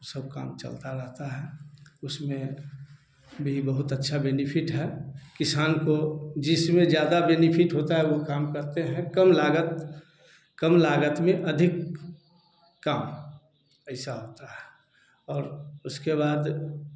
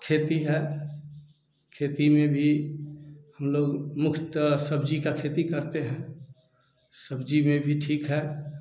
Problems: none marked